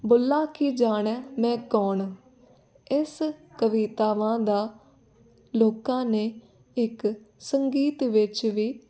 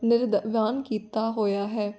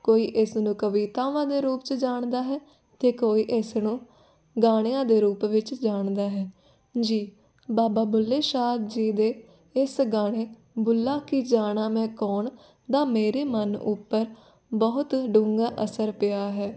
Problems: none marked